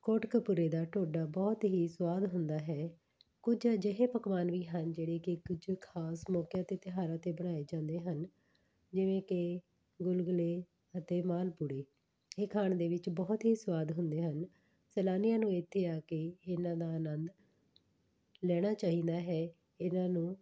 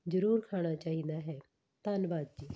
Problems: none marked